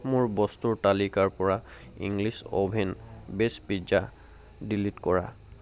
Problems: none marked